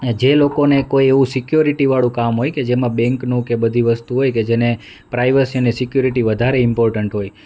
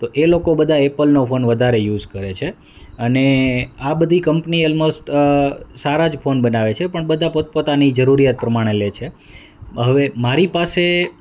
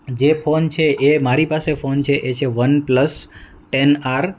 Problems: none marked